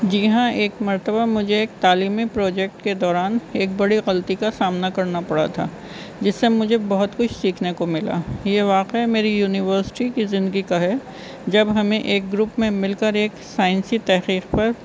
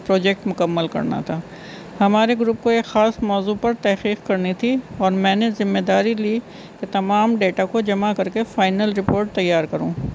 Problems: constant background noise